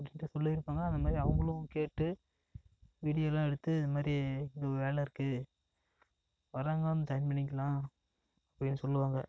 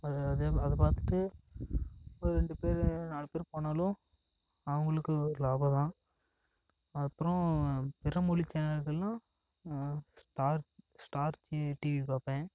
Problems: none marked